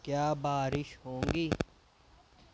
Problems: low volume